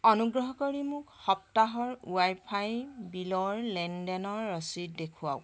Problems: constant background noise